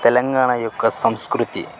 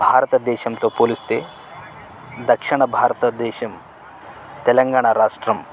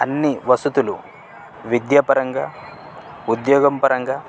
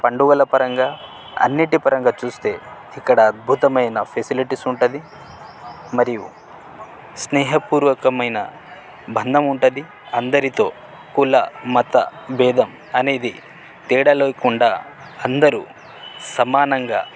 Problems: constant background noise